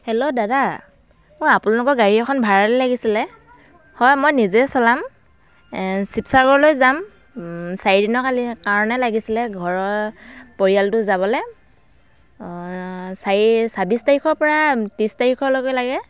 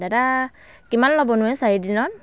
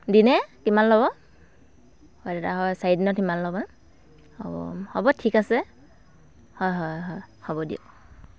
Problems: none marked